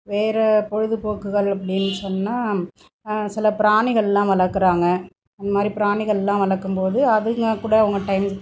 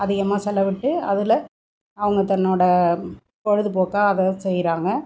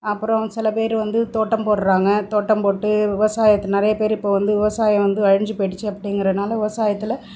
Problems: background sounds at intervals